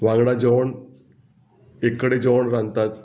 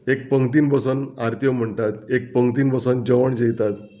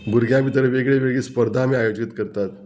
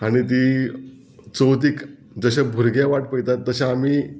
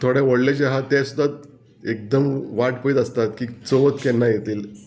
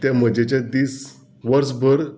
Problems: background sounds at intervals